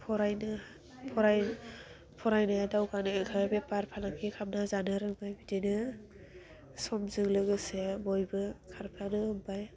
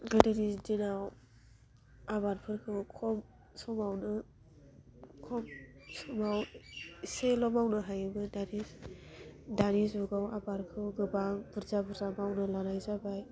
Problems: constant background noise